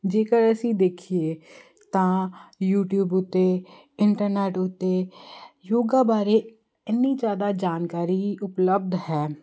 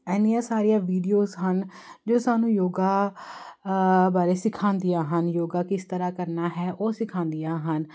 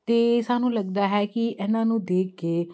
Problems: constant background noise